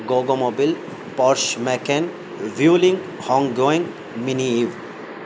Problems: constant background noise